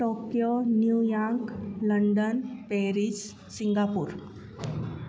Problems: constant background noise, echo